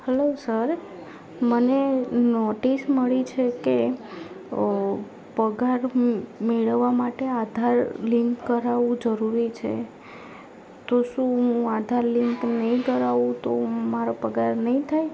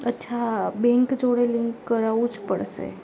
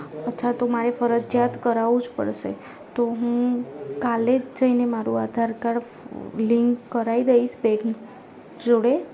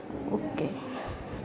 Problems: background conversations at intervals